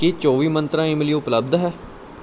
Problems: none marked